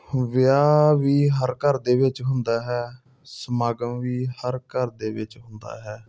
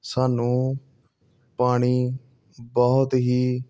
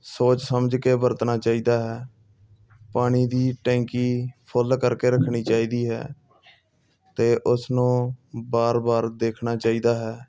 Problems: background sounds at intervals